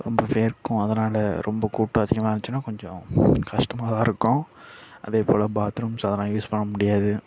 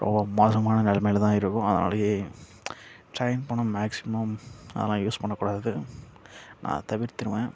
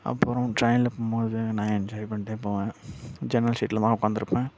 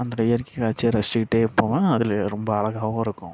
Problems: none marked